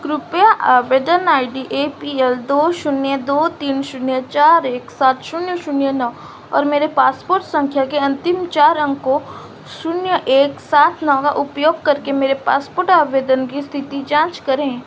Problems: constant background noise